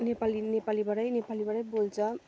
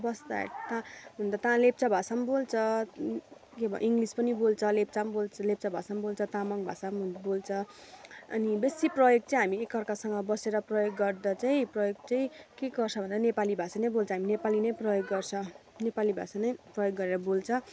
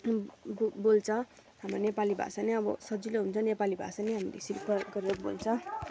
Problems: constant background noise